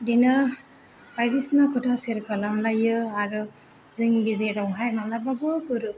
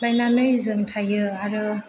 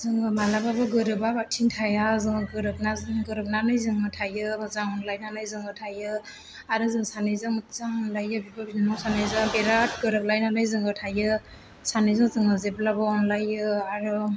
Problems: background sounds at intervals